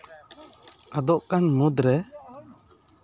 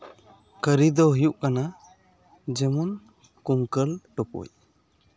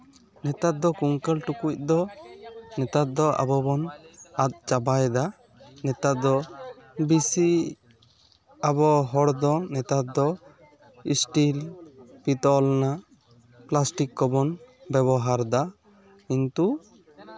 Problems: constant background noise